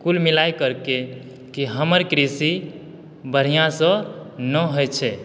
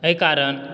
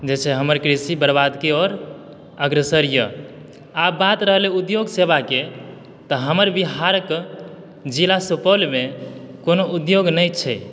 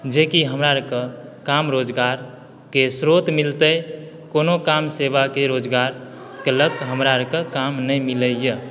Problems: background sounds at intervals